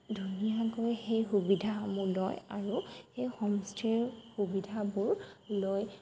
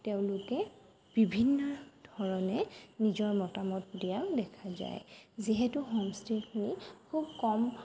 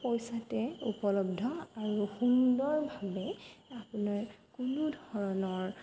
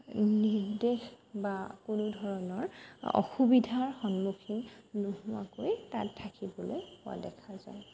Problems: constant background noise